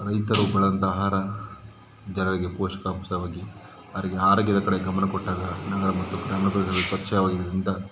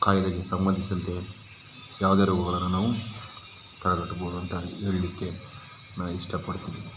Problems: background sounds at intervals